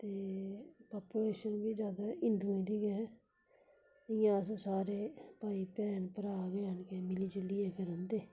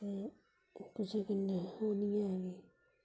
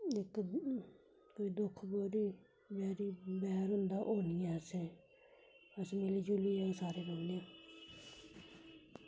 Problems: constant background noise